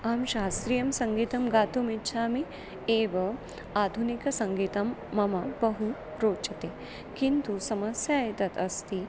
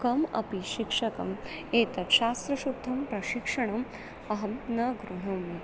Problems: constant background noise